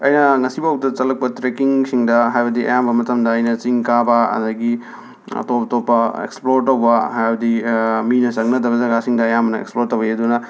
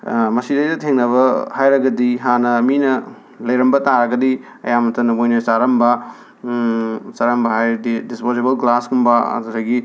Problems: background sounds at intervals, background conversations at intervals